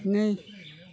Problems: constant background noise